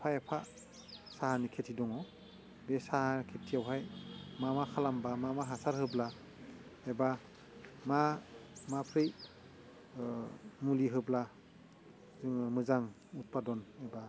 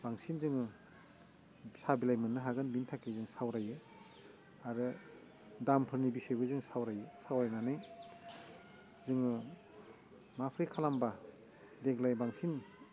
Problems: constant background noise